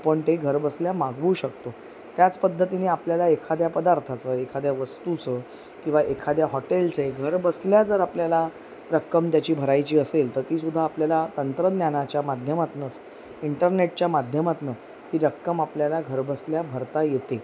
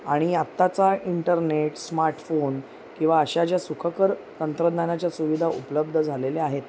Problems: constant background noise, background conversations at intervals